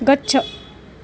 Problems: constant background noise